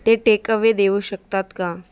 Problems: constant background noise